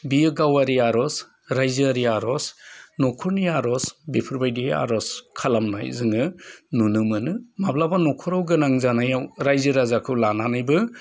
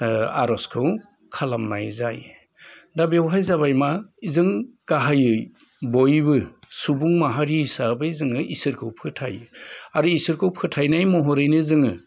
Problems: none marked